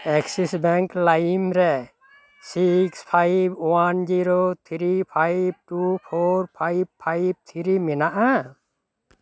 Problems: constant background noise, background conversations at intervals